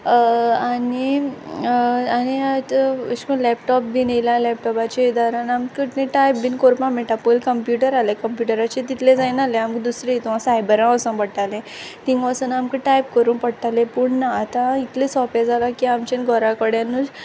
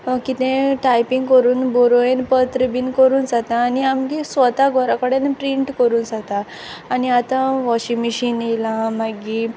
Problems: none marked